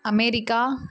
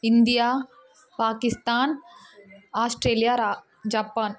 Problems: constant background noise